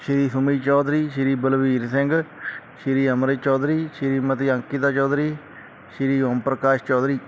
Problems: none marked